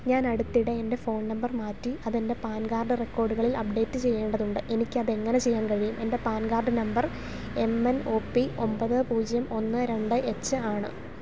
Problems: none marked